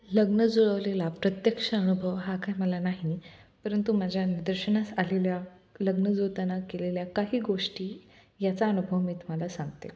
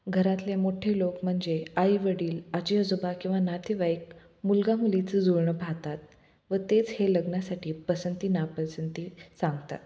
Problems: none marked